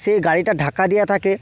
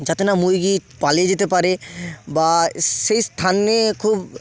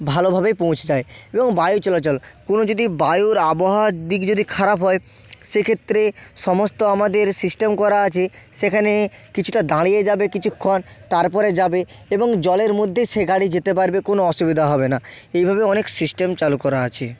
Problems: background sounds at intervals